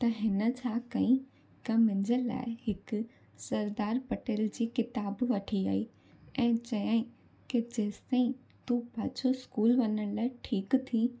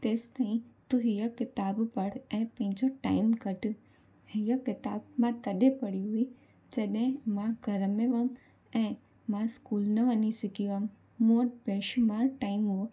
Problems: constant background noise